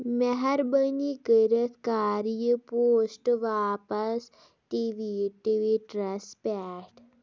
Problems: none marked